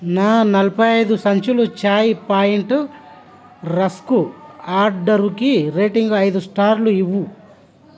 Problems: constant background noise